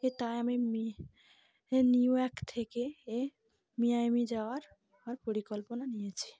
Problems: constant background noise, background conversations at intervals